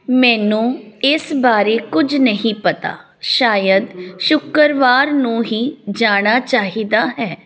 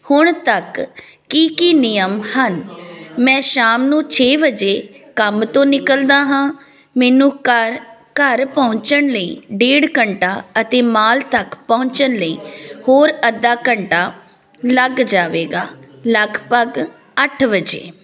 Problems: constant background noise